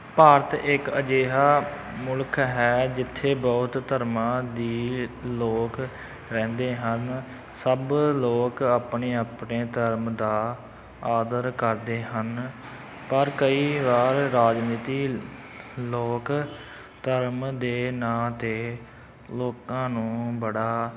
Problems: none marked